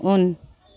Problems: constant background noise